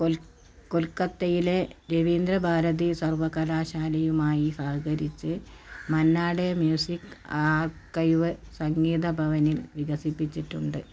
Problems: none marked